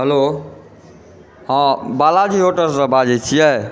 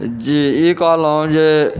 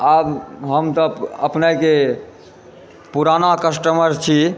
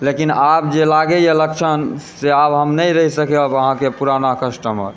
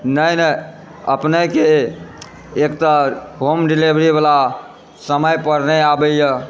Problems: background conversations at intervals